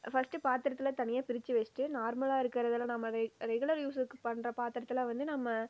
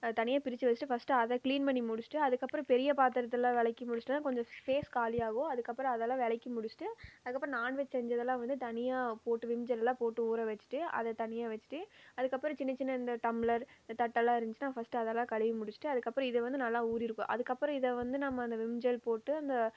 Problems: none marked